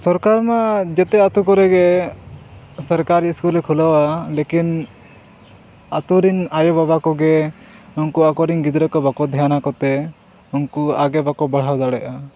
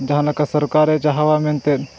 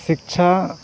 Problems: none marked